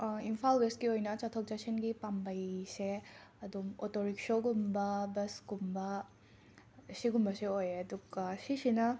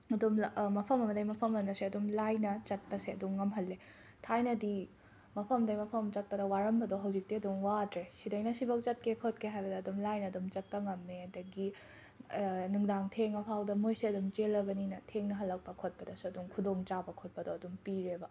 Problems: background sounds at intervals